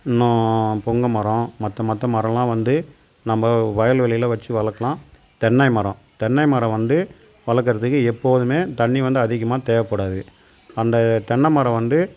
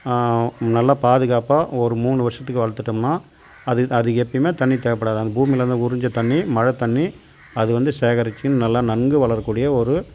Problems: constant background noise